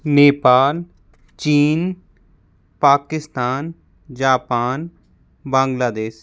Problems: constant background noise